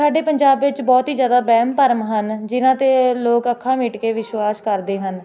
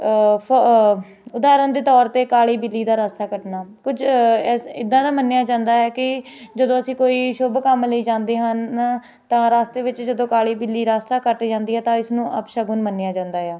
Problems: constant background noise, background conversations at intervals